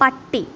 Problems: none marked